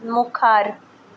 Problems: none marked